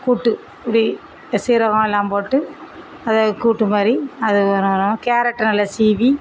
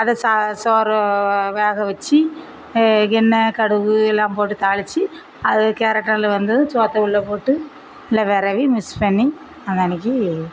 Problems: none marked